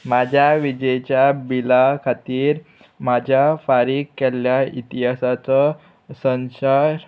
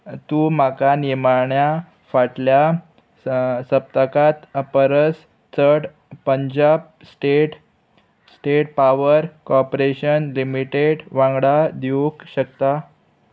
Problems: constant background noise